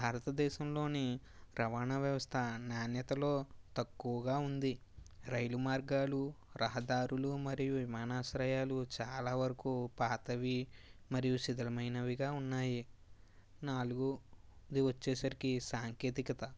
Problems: low volume